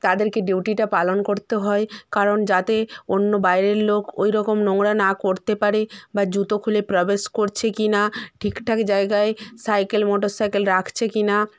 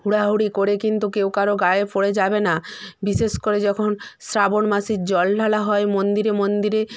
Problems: background sounds at intervals